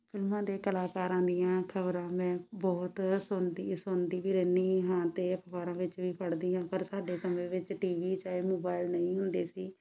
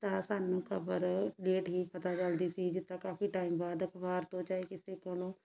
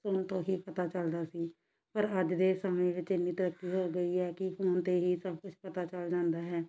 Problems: none marked